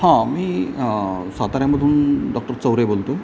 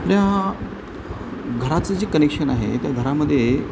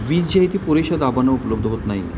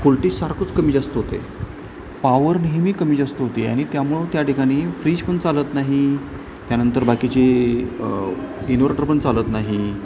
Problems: none marked